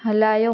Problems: background sounds at intervals